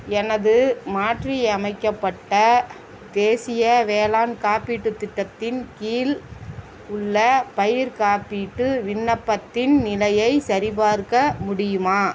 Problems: constant background noise, background conversations at intervals